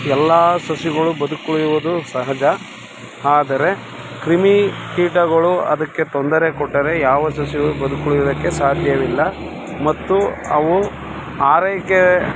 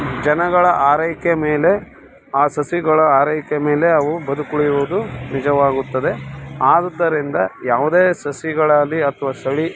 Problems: background sounds at intervals